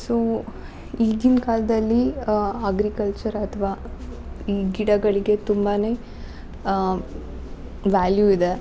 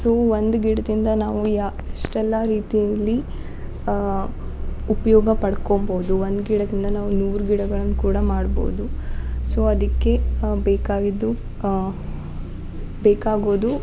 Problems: background sounds at intervals